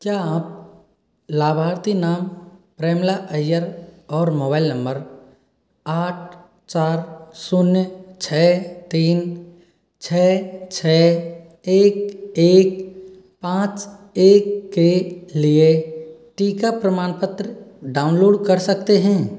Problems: echo